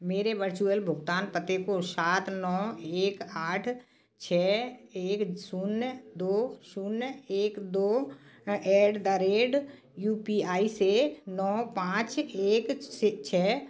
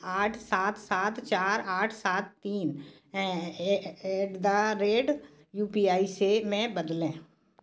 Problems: background sounds at intervals, background conversations at intervals